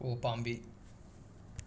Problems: none marked